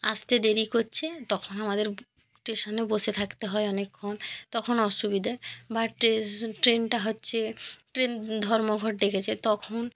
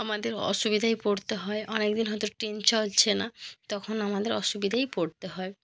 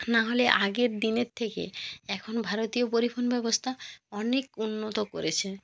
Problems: none marked